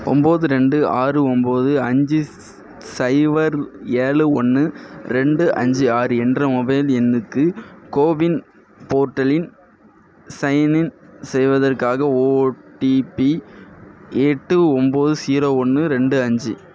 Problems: none marked